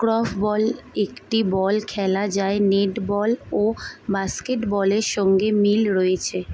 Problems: background sounds at intervals